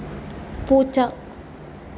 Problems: constant background noise